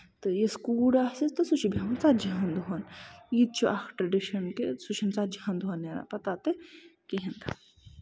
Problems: background sounds at intervals